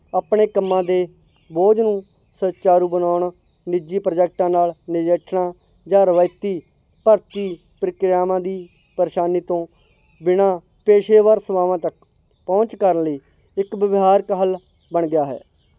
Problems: none marked